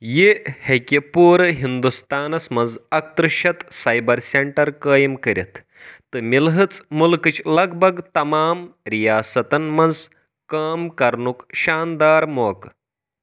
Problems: none marked